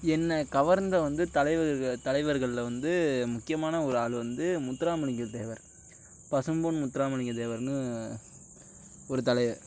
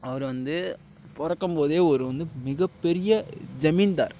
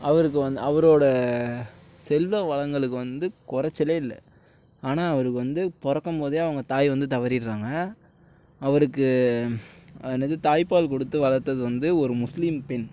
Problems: none marked